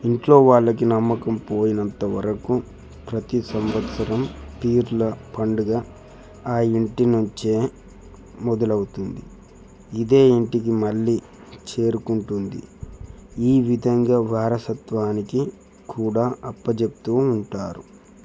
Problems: background sounds at intervals